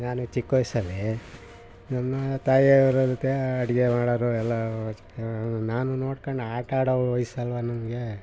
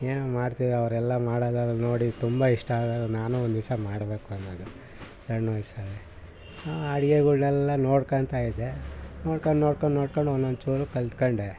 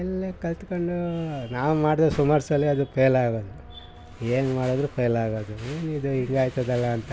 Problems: background sounds at intervals